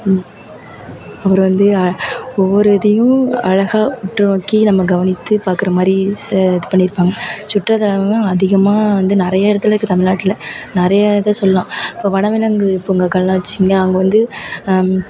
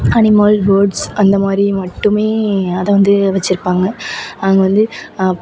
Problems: background sounds at intervals